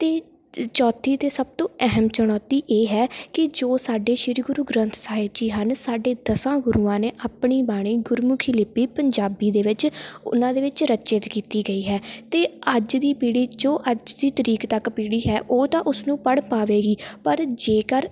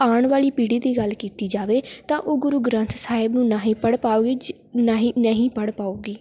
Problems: background conversations at intervals